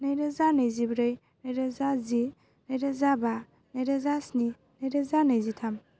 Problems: constant background noise